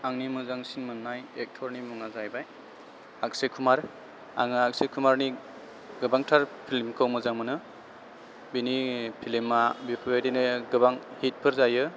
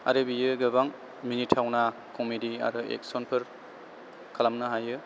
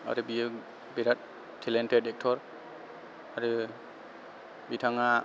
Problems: background sounds at intervals